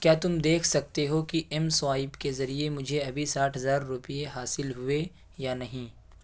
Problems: none marked